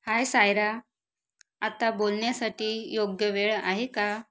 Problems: background sounds at intervals